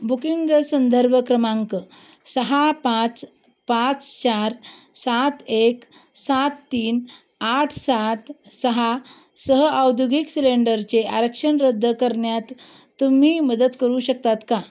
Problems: background sounds at intervals